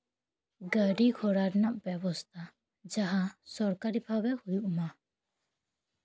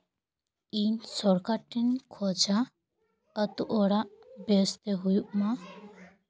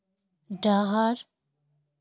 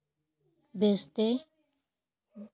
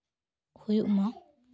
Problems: background conversations at intervals